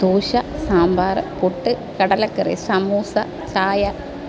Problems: none marked